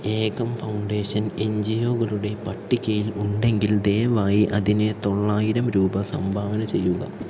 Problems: low volume